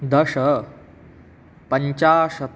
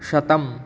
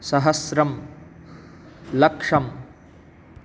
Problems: none marked